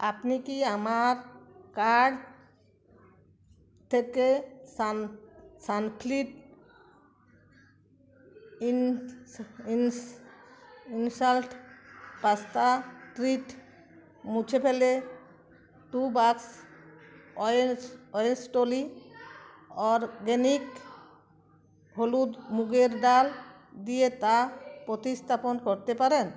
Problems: continuous background conversations